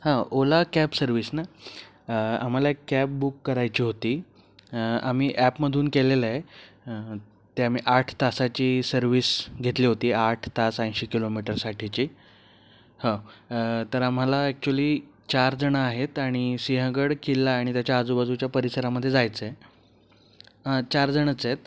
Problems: background sounds at intervals